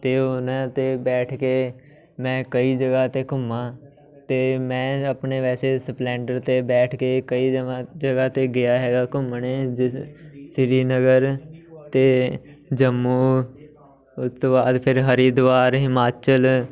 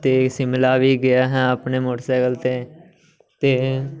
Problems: none marked